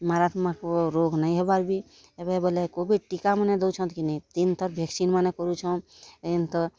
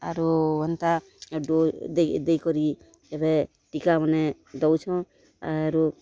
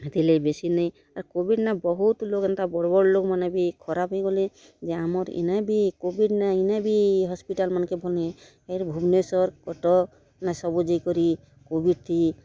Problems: constant background noise, continuous background conversations